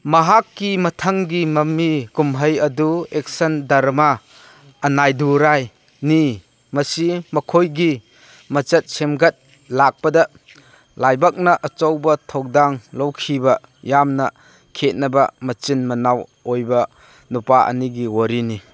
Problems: none marked